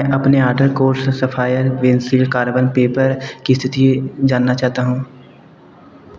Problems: none marked